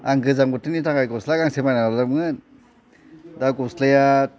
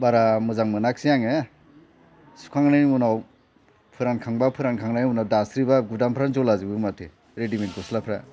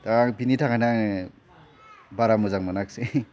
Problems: constant background noise